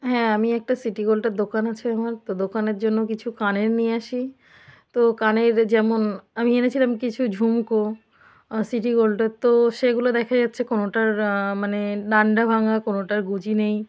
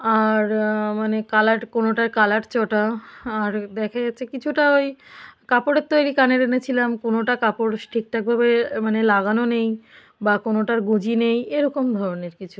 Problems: none marked